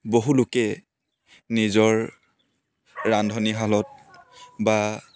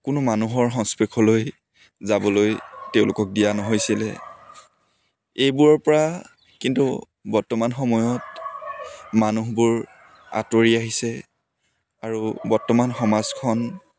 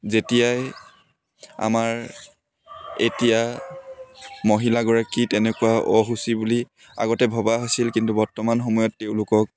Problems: background sounds at intervals